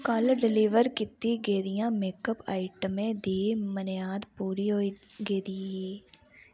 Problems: background sounds at intervals